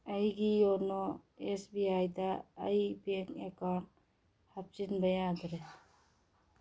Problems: none marked